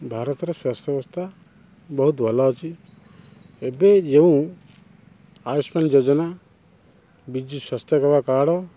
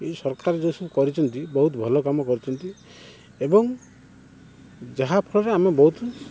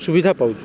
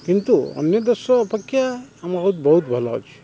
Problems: constant background noise